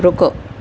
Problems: constant background noise